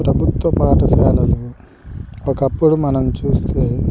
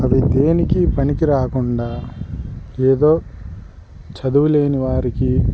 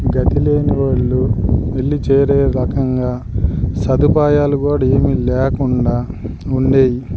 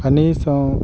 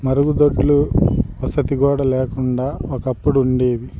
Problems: background sounds at intervals